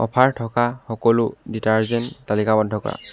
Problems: background sounds at intervals